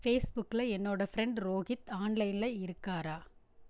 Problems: none marked